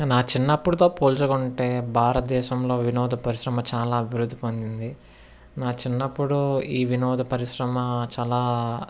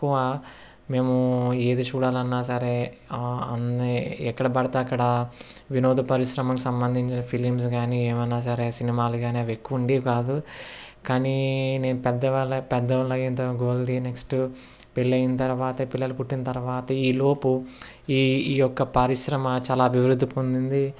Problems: none marked